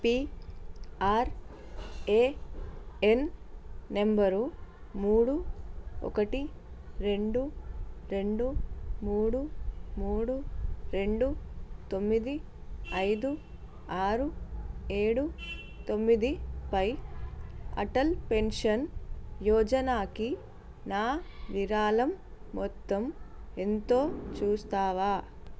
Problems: constant background noise